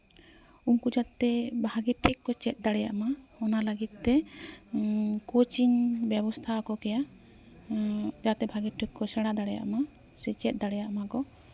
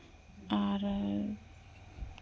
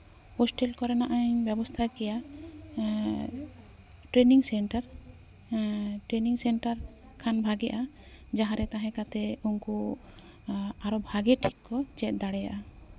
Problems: constant background noise, background conversations at intervals